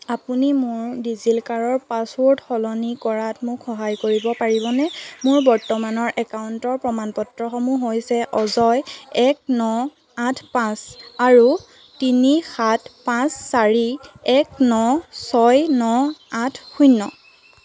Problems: constant background noise